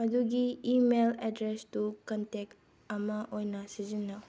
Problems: background sounds at intervals